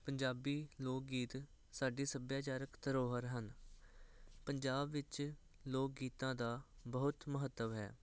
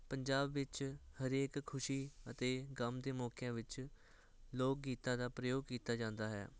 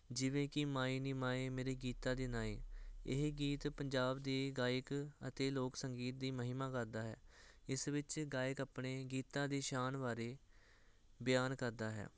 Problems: none marked